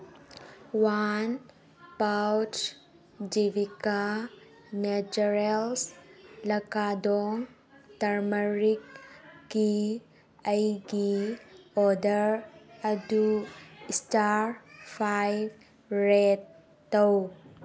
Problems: none marked